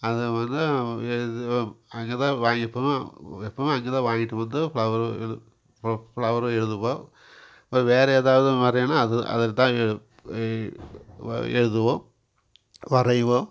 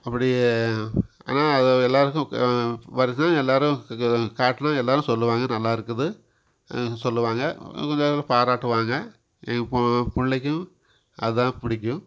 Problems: constant background noise